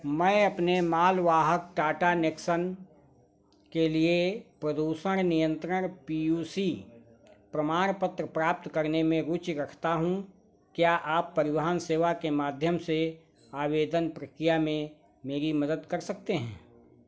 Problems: background sounds at intervals